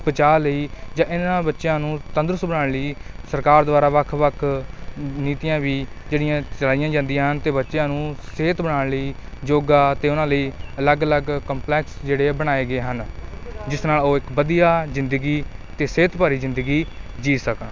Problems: constant background noise